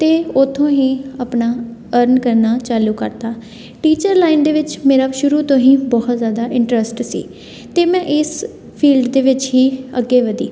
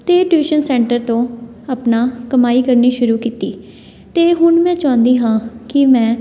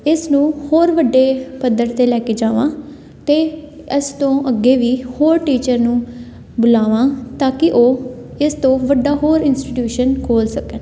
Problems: constant background noise, background conversations at intervals